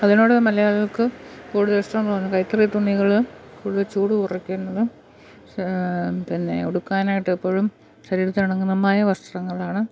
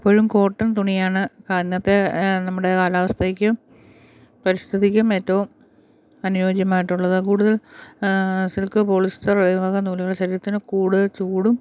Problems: background sounds at intervals